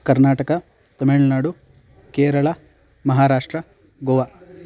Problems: constant background noise